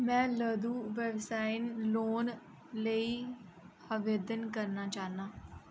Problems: none marked